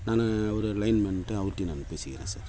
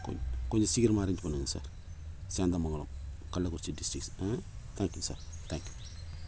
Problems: constant background noise